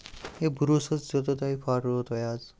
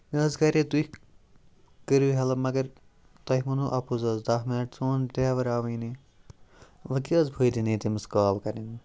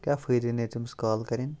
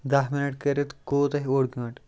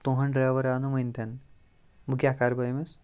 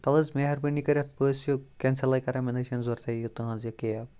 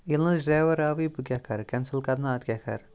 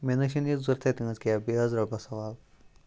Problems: background sounds at intervals